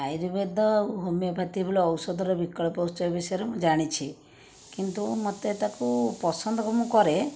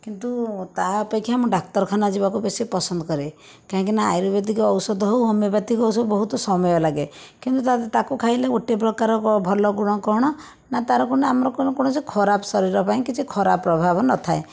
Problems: background sounds at intervals